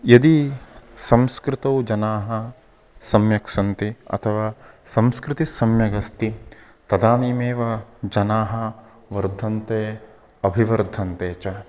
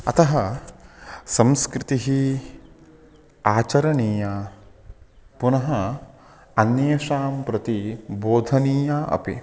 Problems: none marked